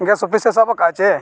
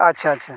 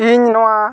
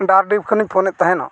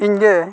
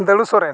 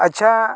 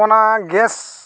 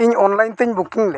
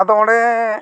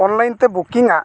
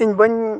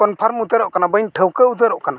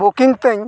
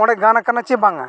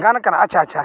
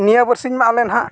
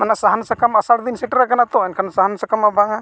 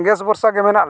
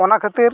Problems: background sounds at intervals